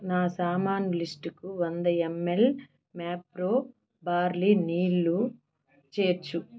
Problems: none marked